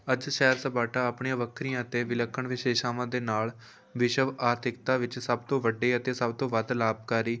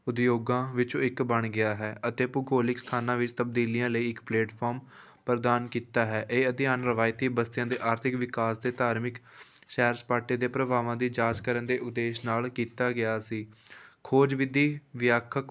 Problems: background sounds at intervals